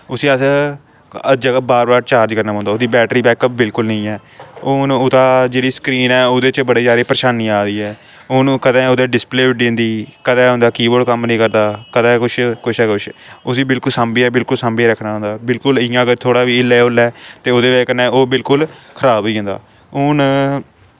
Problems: constant background noise